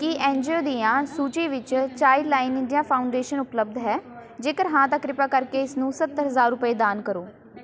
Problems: constant background noise, continuous background conversations